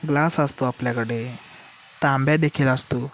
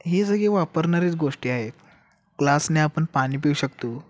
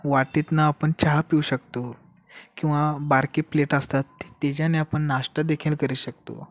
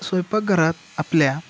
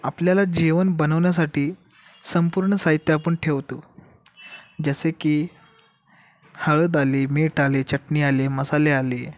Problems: background sounds at intervals